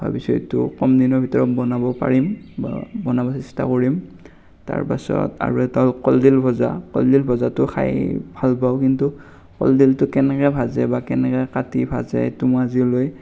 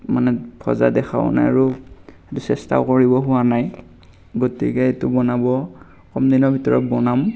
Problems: none marked